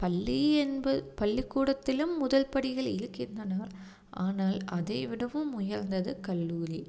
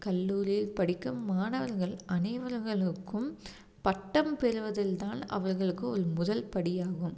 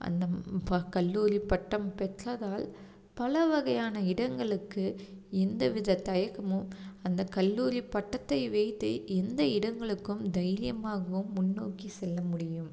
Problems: none marked